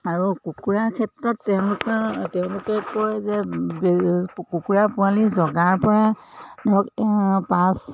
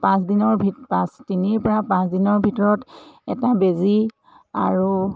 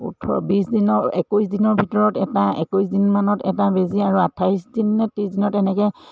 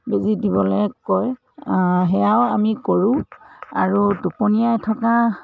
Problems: background sounds at intervals